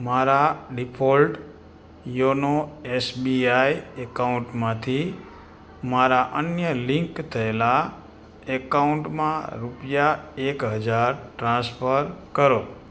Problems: constant background noise